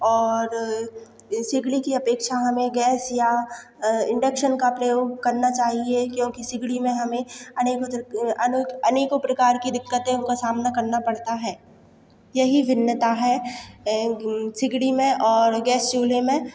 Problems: constant background noise, echo